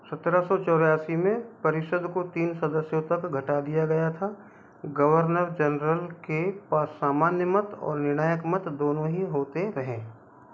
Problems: none marked